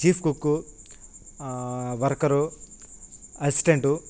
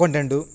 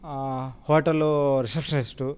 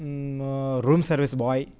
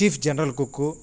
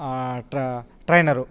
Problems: constant background noise